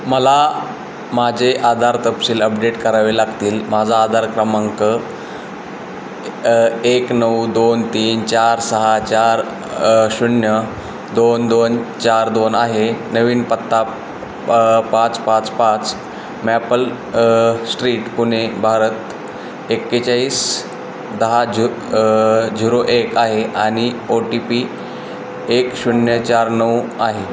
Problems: constant background noise, background conversations at intervals